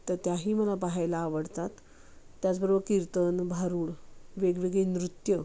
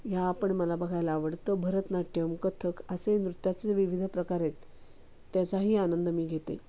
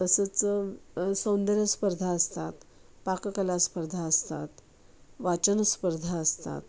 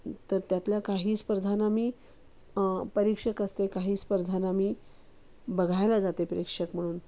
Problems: constant background noise